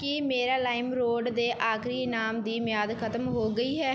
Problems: background sounds at intervals